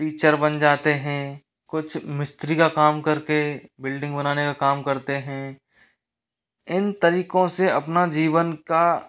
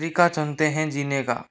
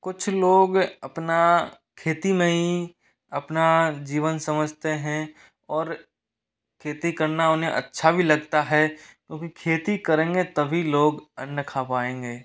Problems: background sounds at intervals, echo